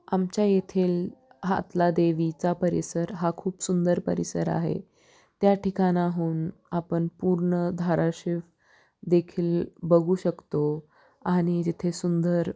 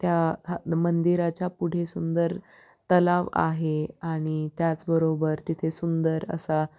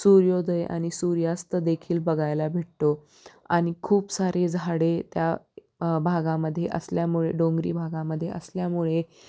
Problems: constant background noise